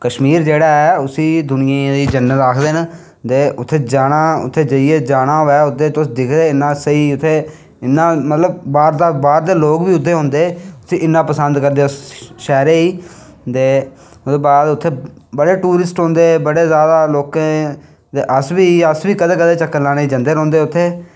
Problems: none marked